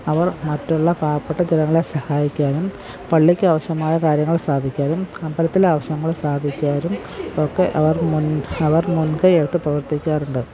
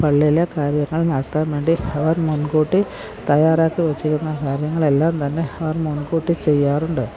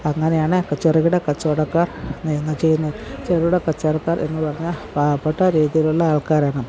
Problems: background sounds at intervals, background conversations at intervals